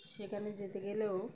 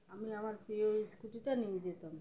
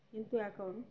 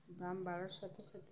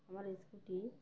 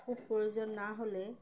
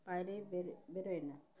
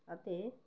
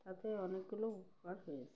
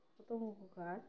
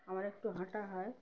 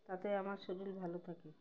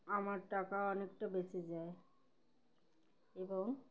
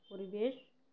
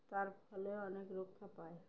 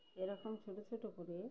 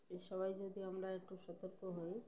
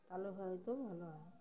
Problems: background sounds at intervals, background conversations at intervals